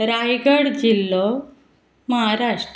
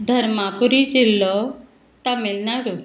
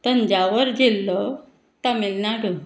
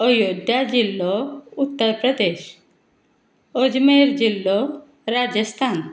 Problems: none marked